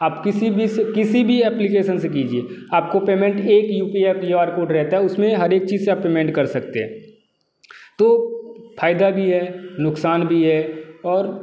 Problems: background sounds at intervals